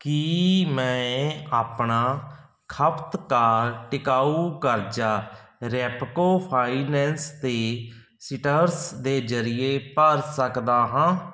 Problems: background sounds at intervals